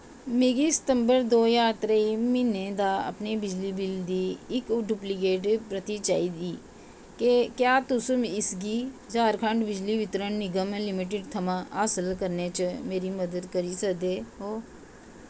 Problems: constant background noise, low volume